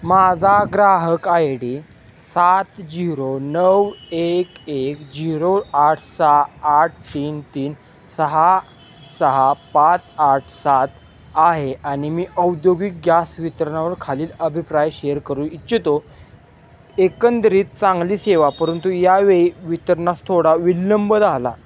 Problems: none marked